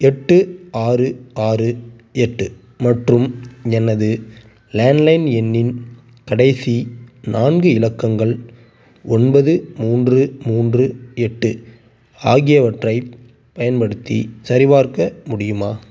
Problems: none marked